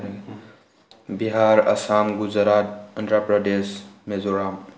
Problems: low volume